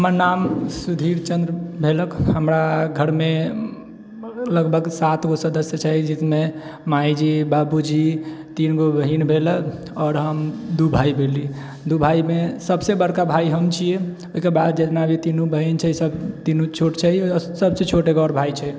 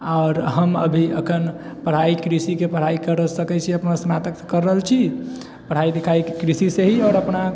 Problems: none marked